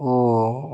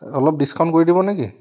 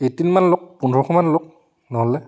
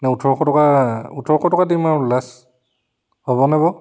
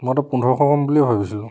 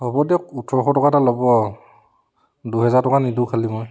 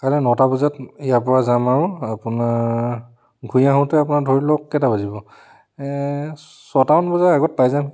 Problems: none marked